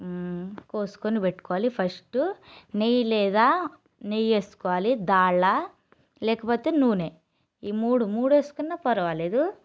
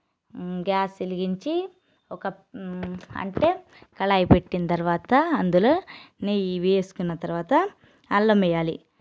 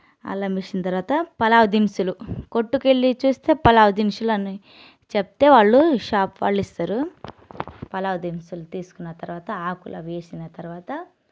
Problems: none marked